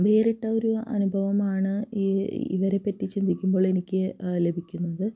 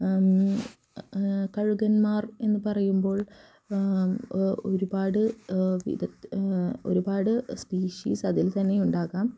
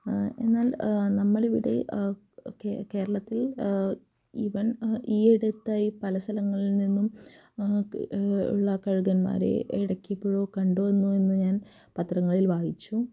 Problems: low volume